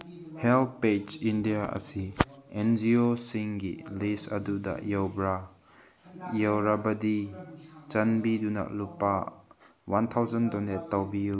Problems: background conversations at intervals